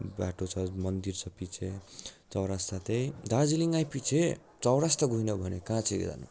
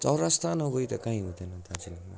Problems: none marked